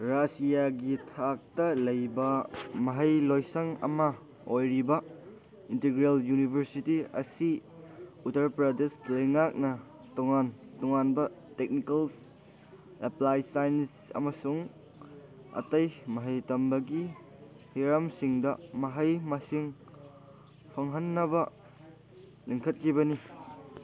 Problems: background sounds at intervals, background conversations at intervals